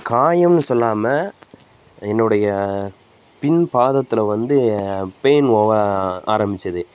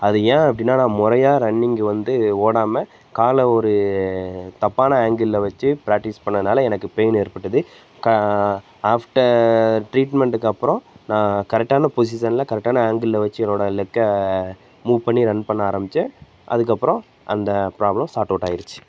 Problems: constant background noise